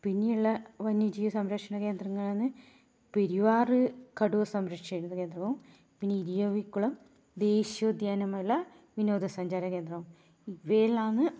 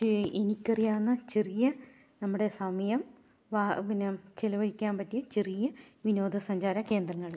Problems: low volume